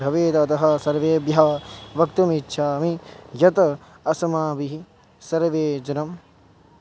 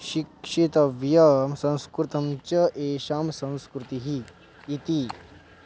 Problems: constant background noise